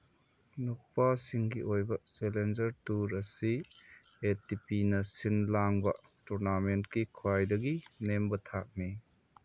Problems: none marked